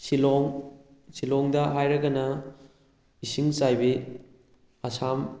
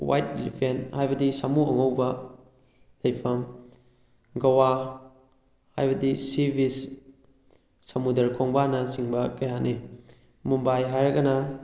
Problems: background conversations at intervals